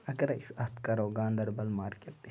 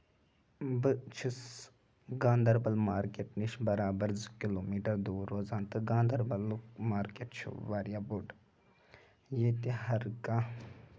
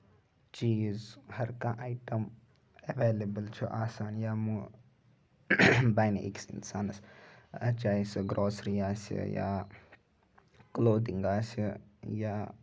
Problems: none marked